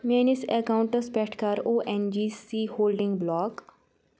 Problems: background sounds at intervals